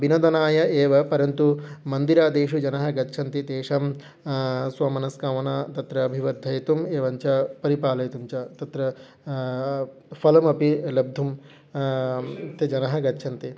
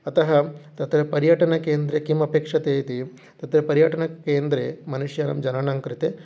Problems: background sounds at intervals